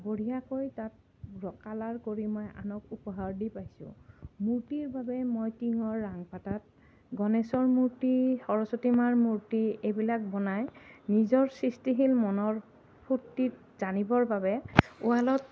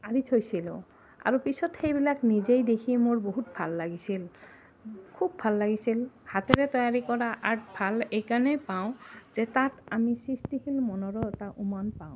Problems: none marked